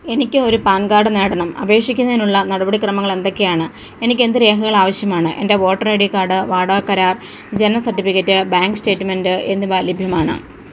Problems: background sounds at intervals